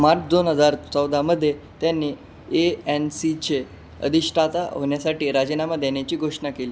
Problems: constant background noise